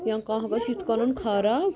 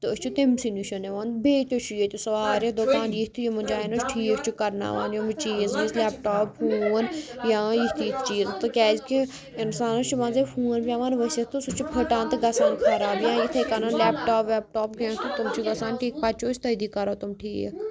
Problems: constant background noise